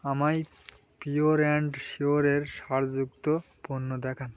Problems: none marked